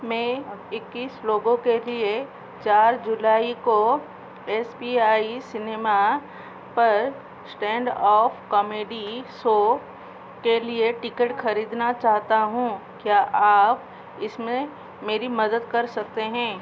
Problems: constant background noise